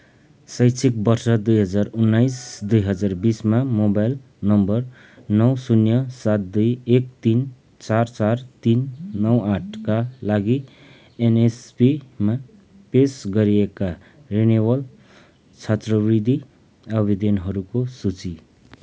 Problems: none marked